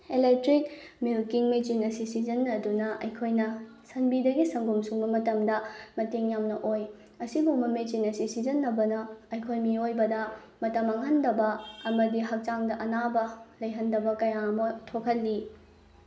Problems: none marked